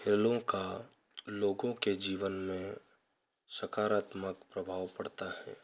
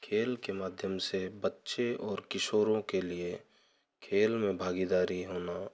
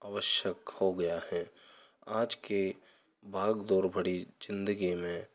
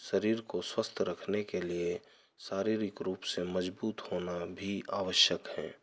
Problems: none marked